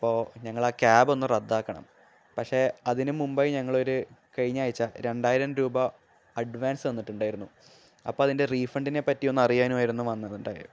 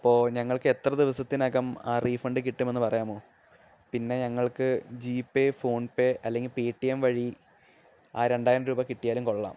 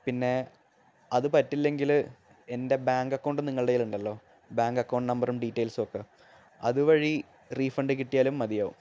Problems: background sounds at intervals